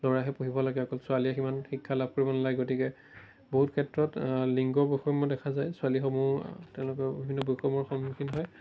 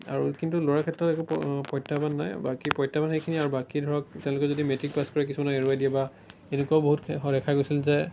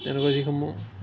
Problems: background sounds at intervals